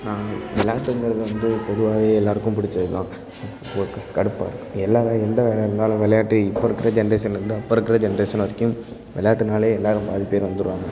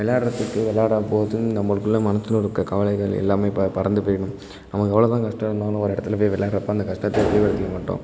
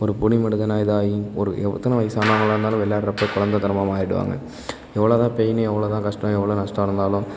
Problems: constant background noise, background conversations at intervals